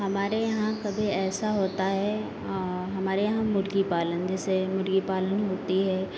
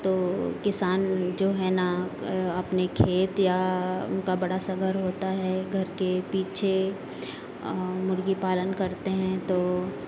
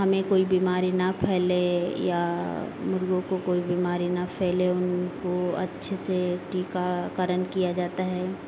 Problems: constant background noise